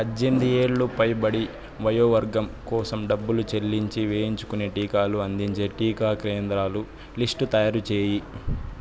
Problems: constant background noise